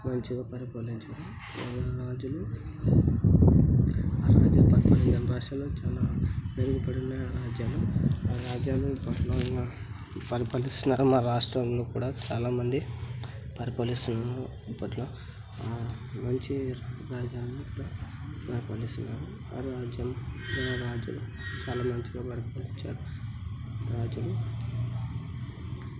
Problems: none marked